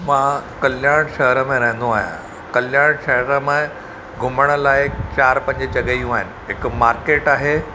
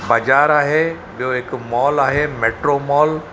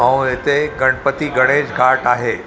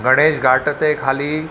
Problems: none marked